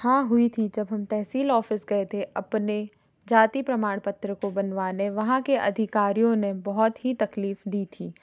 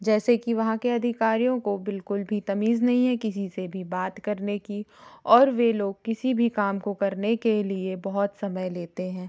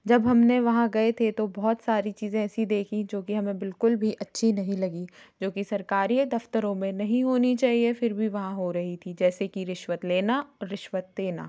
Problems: background sounds at intervals